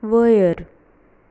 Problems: background sounds at intervals